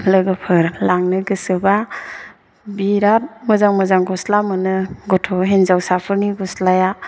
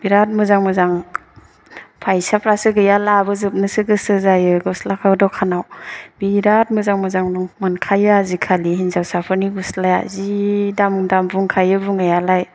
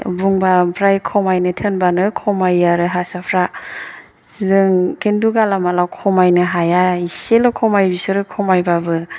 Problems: none marked